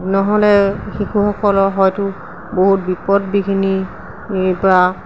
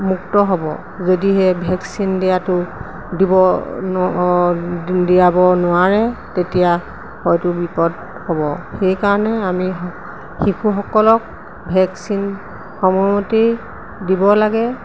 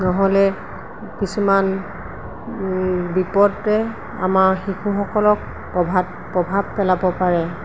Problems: constant background noise